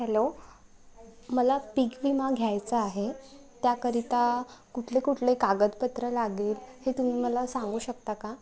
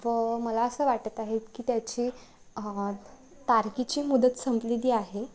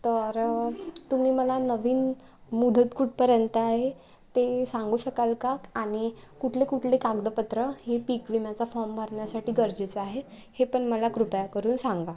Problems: constant background noise, continuous background conversations